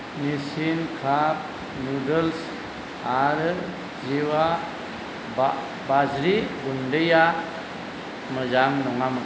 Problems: low volume